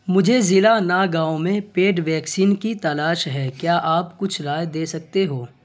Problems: constant background noise